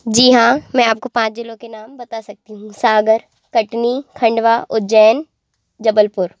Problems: constant background noise